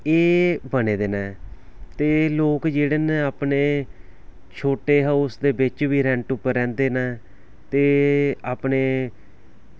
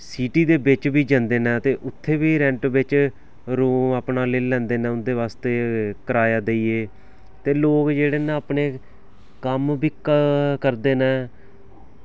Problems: background sounds at intervals